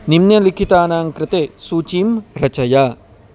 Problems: none marked